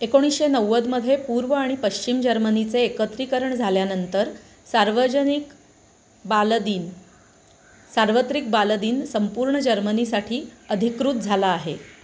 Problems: constant background noise